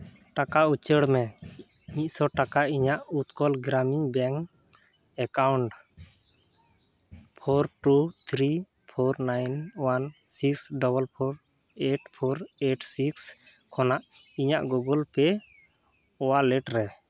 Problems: none marked